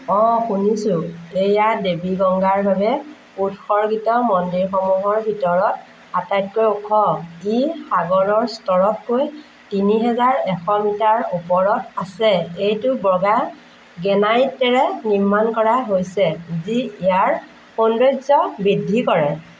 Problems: none marked